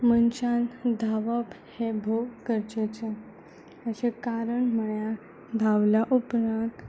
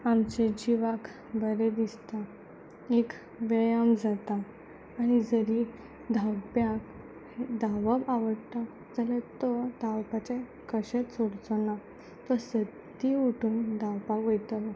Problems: background sounds at intervals